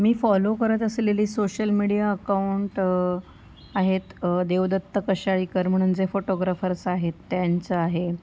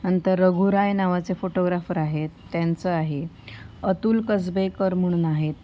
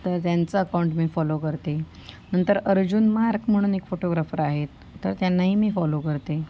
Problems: none marked